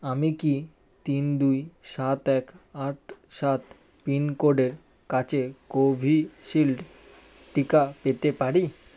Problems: none marked